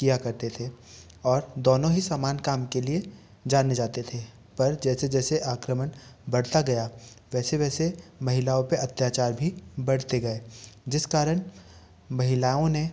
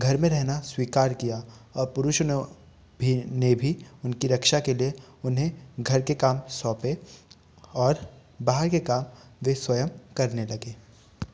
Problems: none marked